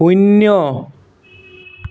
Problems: background sounds at intervals